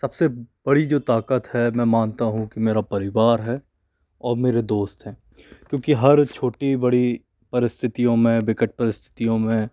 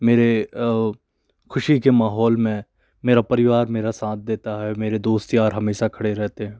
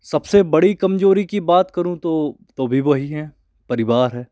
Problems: none marked